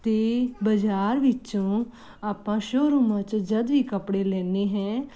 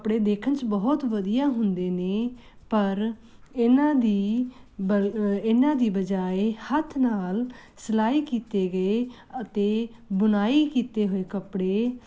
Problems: none marked